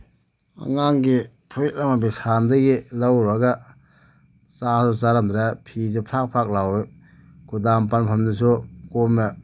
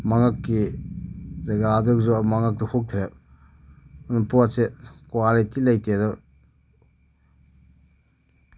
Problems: none marked